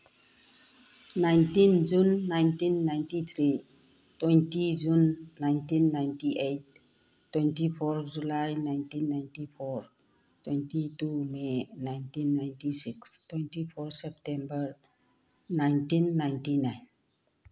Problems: none marked